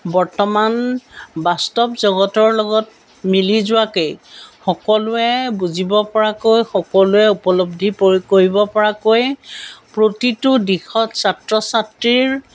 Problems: none marked